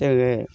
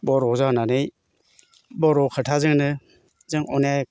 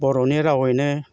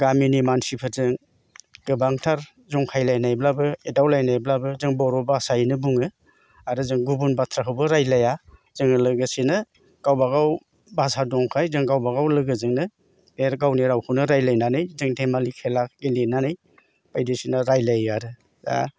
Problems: constant background noise